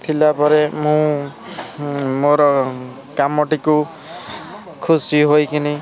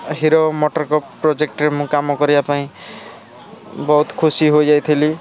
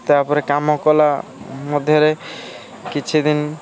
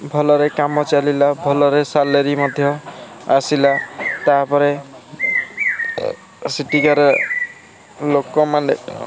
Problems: constant background noise, continuous background conversations